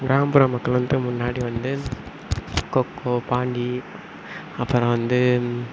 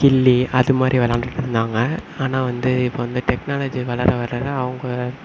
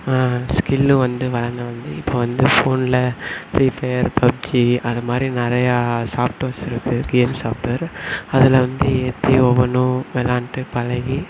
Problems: background sounds at intervals